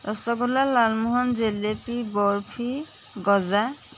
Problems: constant background noise